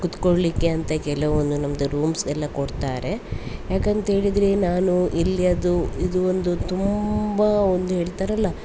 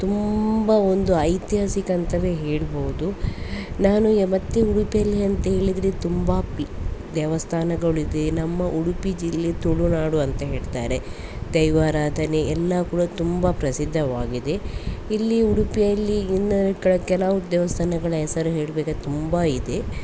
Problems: constant background noise